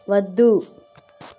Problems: constant background noise